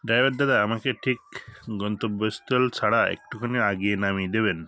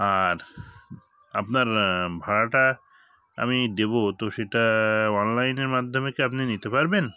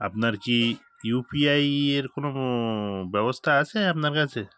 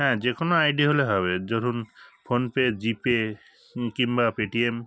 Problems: background sounds at intervals, background conversations at intervals